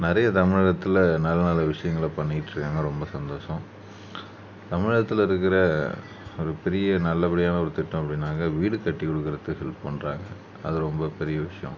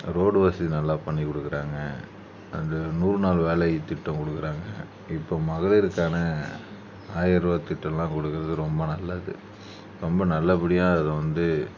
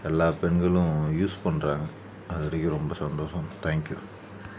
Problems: none marked